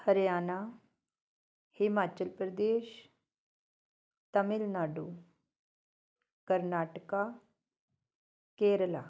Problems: none marked